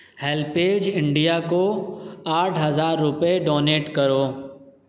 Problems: none marked